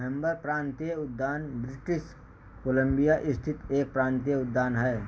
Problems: background sounds at intervals